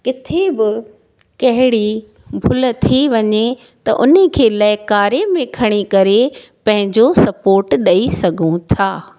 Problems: none marked